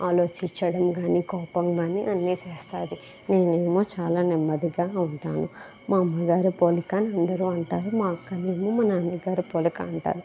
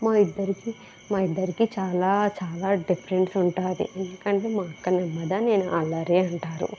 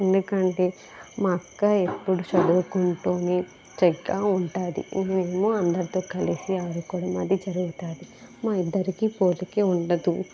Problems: constant background noise